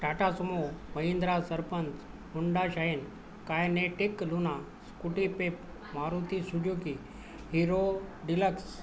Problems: none marked